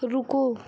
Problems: none marked